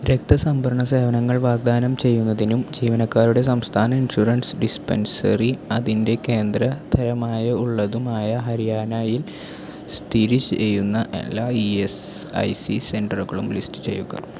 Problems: constant background noise